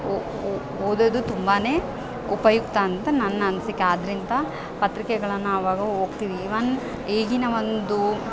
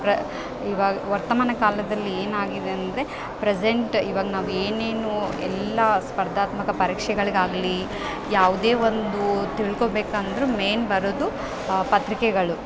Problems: background sounds at intervals